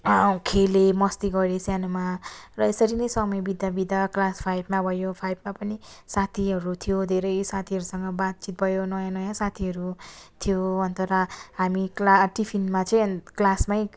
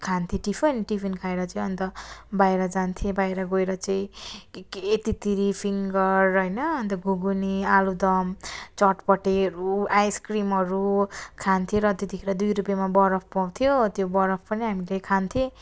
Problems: constant background noise, continuous background conversations